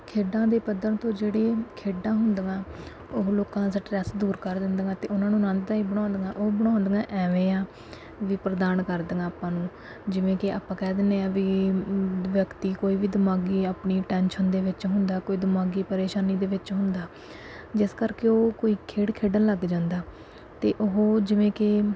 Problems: background sounds at intervals